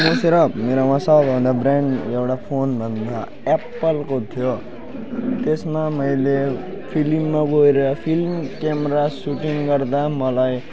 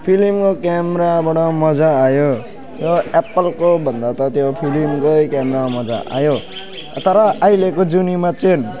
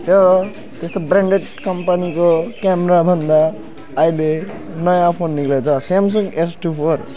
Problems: constant background noise, continuous background conversations